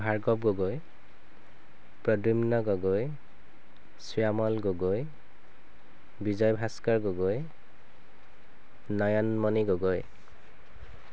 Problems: constant background noise